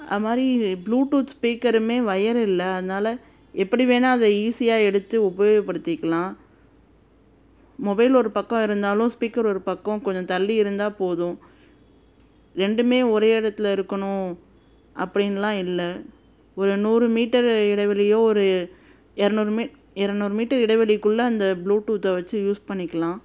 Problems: constant background noise